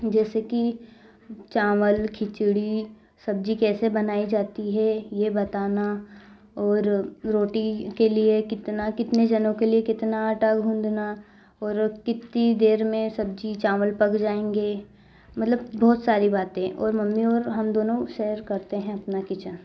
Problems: none marked